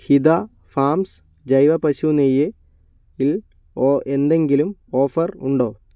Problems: none marked